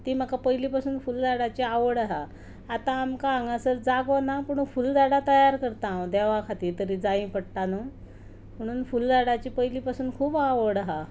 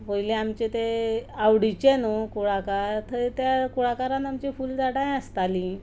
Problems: background sounds at intervals